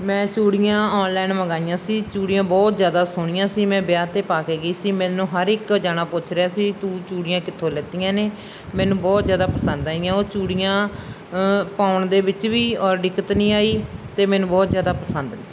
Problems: background sounds at intervals